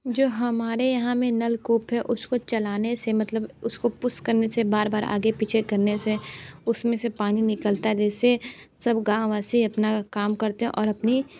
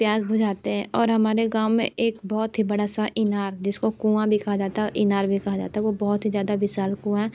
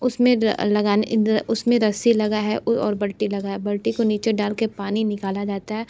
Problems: none marked